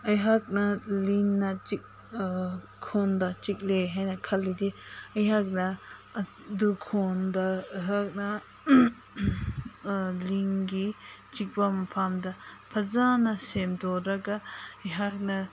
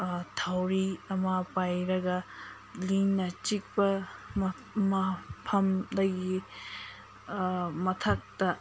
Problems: constant background noise